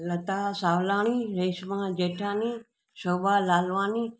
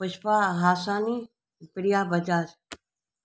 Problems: none marked